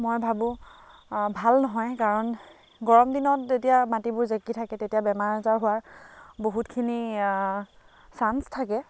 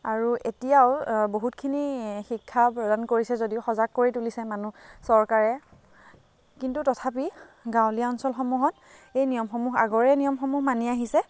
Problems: constant background noise